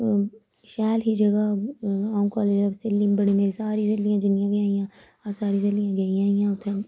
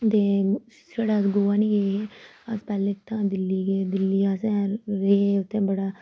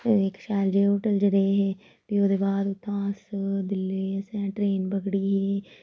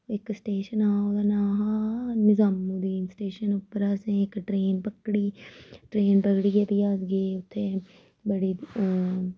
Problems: none marked